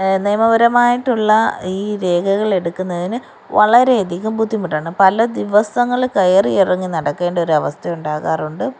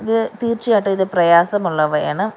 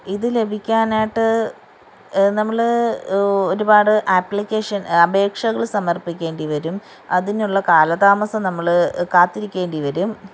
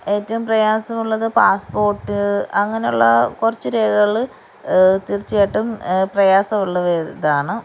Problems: background sounds at intervals